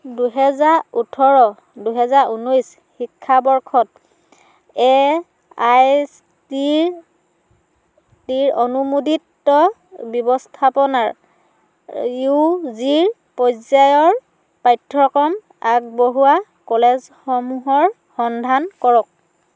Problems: none marked